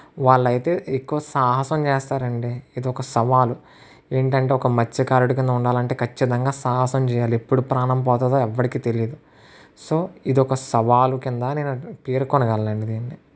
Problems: constant background noise